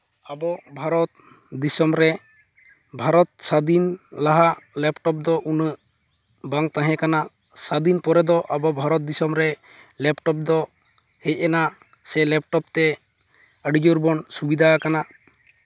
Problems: none marked